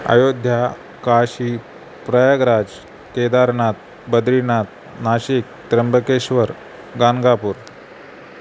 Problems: constant background noise